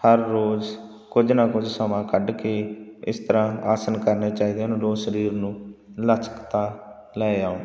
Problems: background sounds at intervals